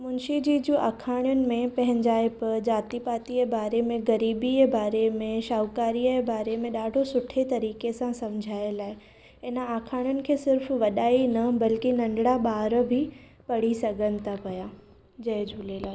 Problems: none marked